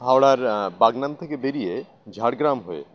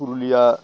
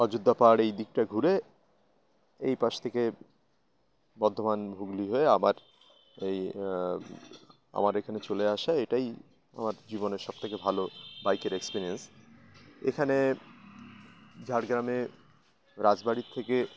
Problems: constant background noise, continuous background conversations